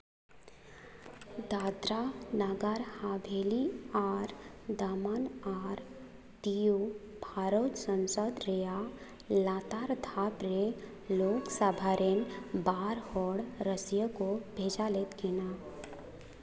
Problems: background sounds at intervals